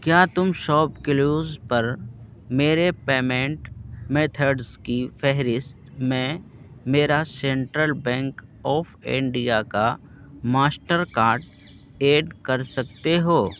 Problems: constant background noise